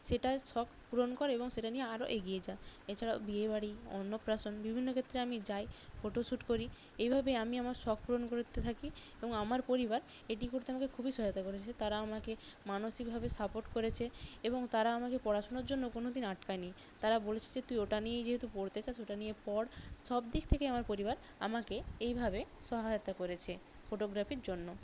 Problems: constant background noise